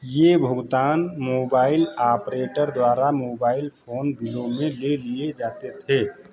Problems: none marked